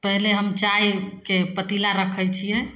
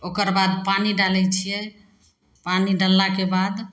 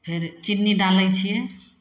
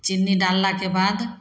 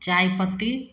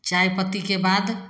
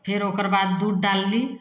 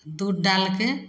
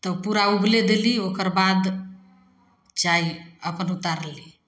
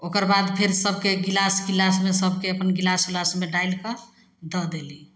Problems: none marked